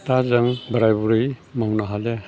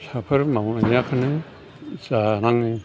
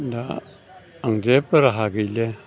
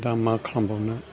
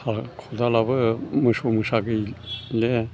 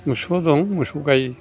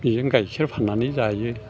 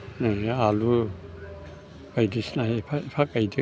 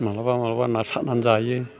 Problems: low volume